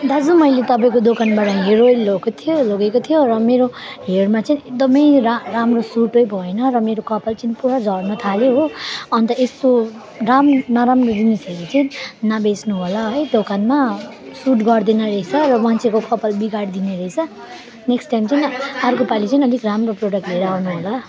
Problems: continuous background conversations